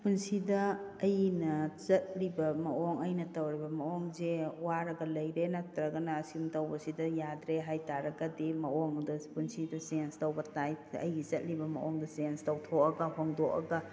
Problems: none marked